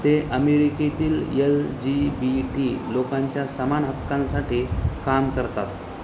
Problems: constant background noise